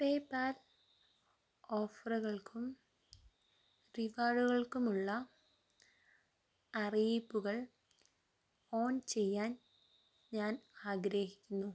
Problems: low volume